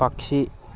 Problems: none marked